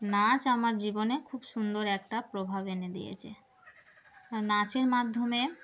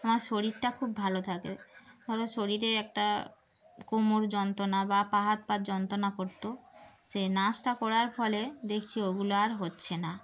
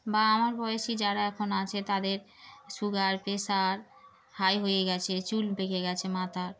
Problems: background sounds at intervals